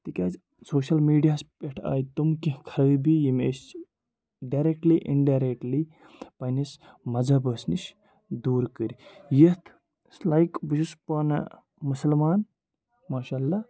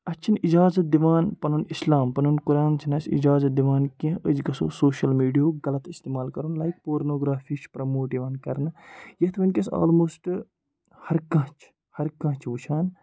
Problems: background sounds at intervals, background conversations at intervals